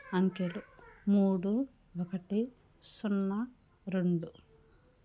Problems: none marked